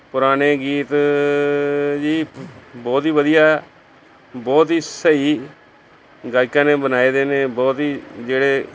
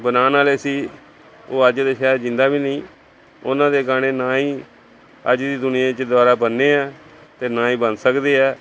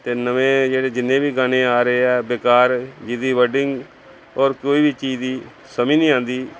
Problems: background conversations at intervals